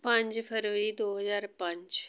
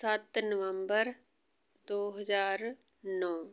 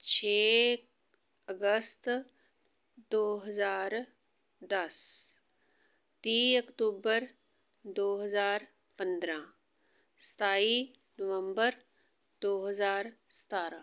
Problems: constant background noise